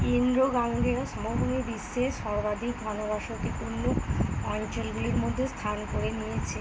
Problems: constant background noise